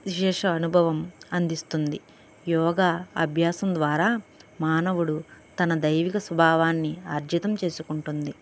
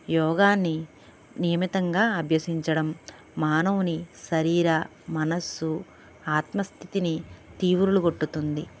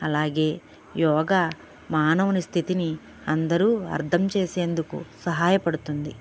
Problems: background sounds at intervals